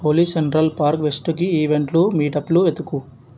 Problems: none marked